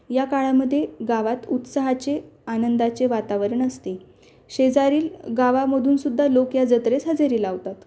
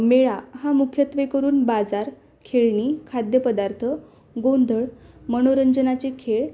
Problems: background sounds at intervals